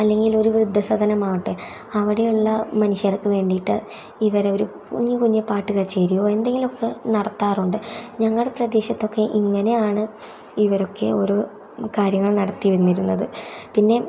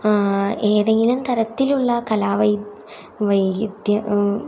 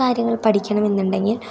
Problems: background sounds at intervals